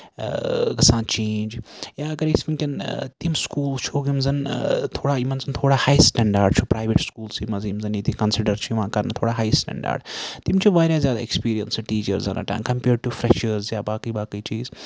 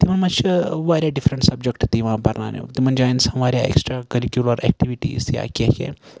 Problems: background sounds at intervals